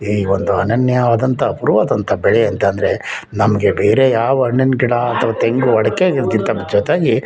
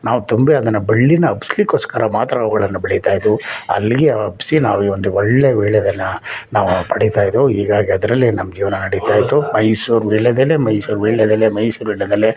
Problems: background conversations at intervals